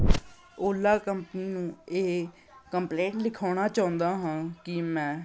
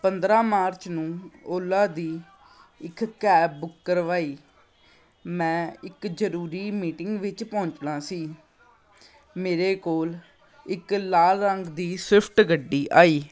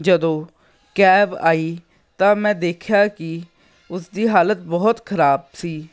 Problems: none marked